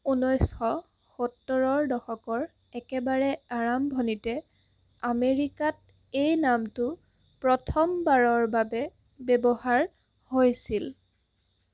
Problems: constant background noise